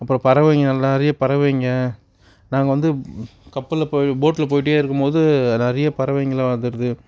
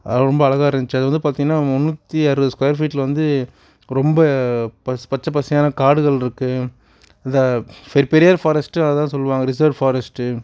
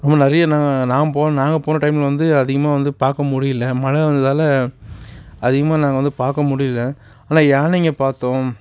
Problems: background sounds at intervals